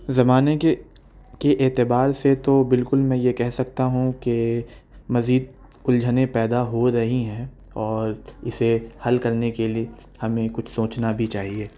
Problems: none marked